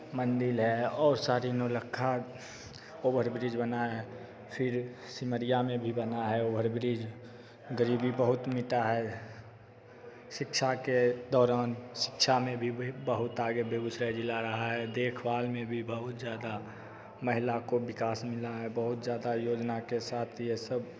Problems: constant background noise, echo